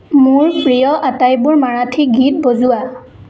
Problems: none marked